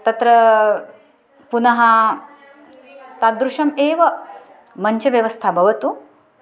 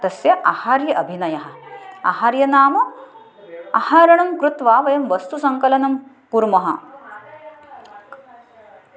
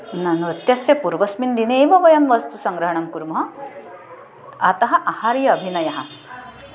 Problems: continuous background conversations